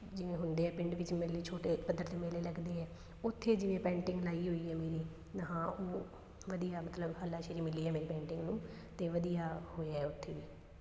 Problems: constant background noise